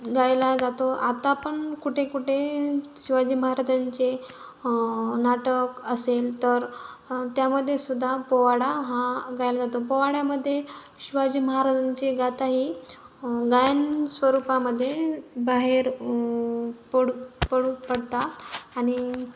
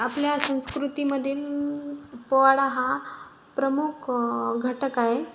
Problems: none marked